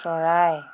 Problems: constant background noise